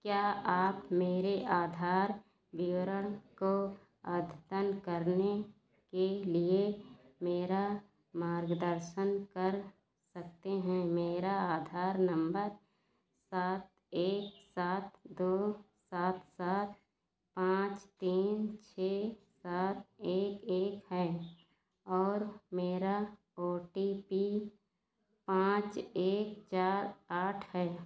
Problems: background sounds at intervals